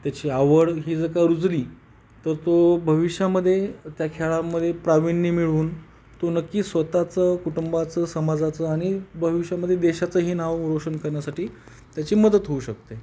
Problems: background sounds at intervals